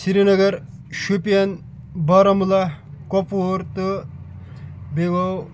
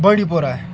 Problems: constant background noise